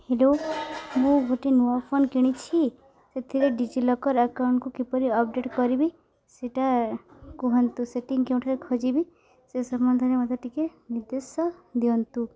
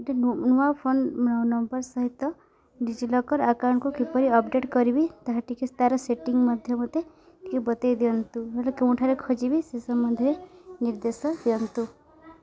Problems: none marked